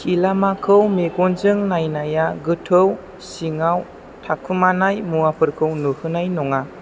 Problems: none marked